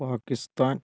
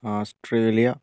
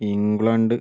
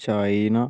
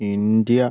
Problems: low volume